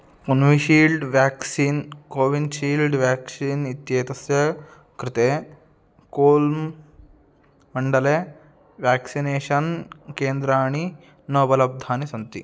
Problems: none marked